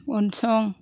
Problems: none marked